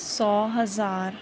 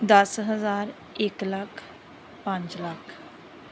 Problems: constant background noise